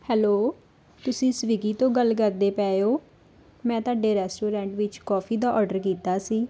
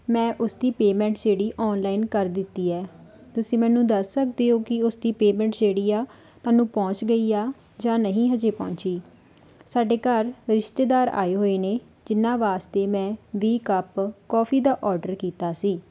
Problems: background sounds at intervals